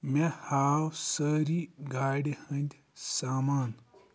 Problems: none marked